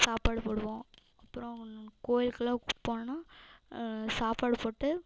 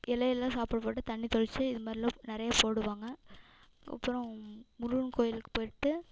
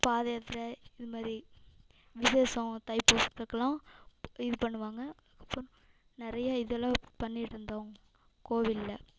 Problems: echo